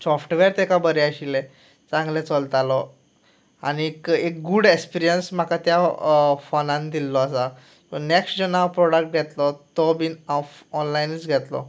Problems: none marked